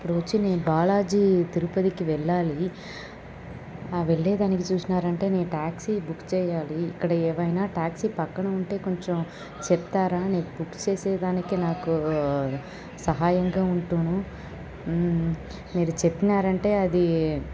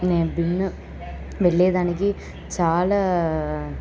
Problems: constant background noise, background conversations at intervals